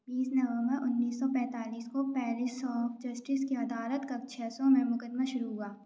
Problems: low volume